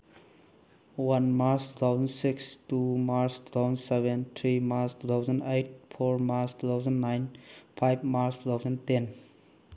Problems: none marked